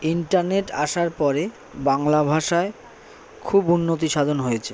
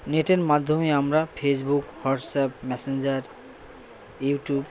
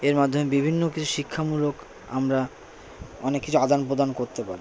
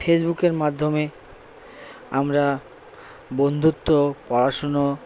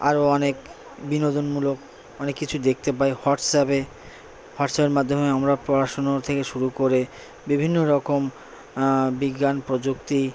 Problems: constant background noise, background conversations at intervals